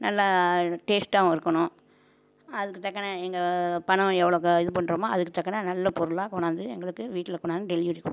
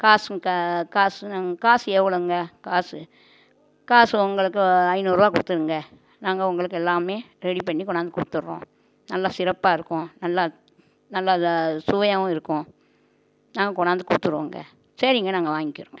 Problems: none marked